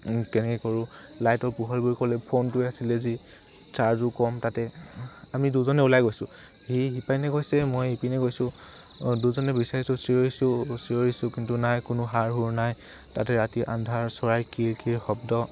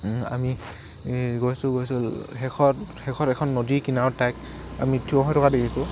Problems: constant background noise